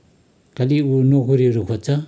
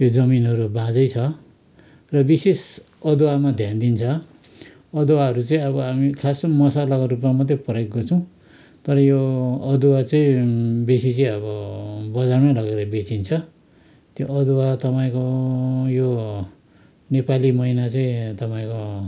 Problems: background conversations at intervals